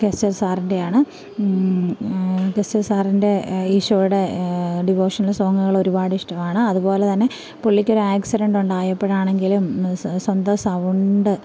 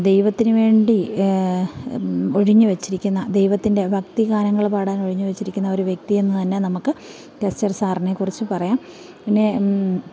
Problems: background sounds at intervals